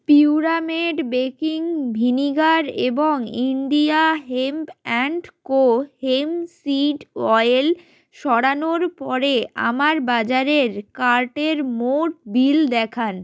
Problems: none marked